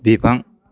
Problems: none marked